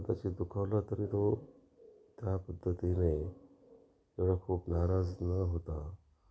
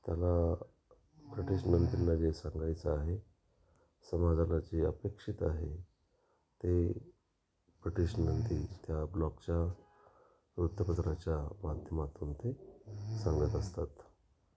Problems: constant background noise